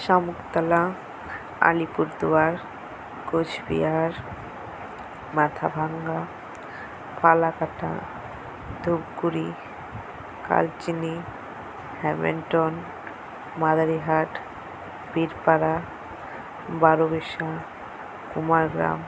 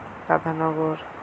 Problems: constant background noise